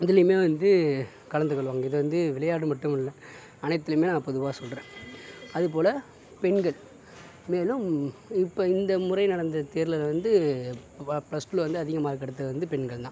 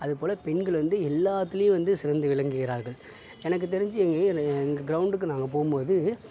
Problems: none marked